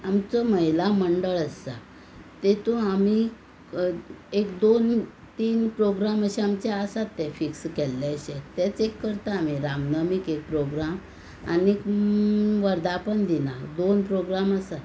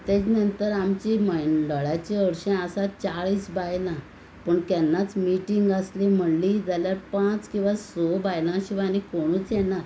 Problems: constant background noise